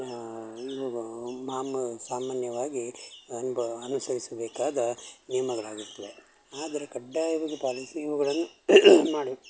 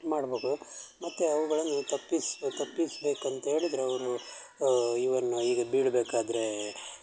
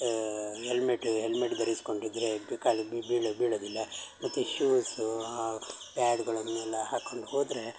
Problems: constant background noise